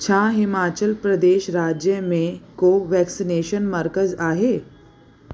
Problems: constant background noise